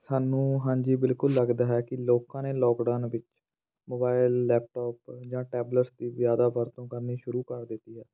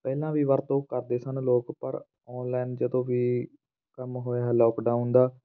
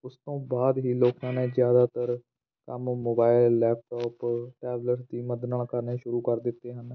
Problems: background sounds at intervals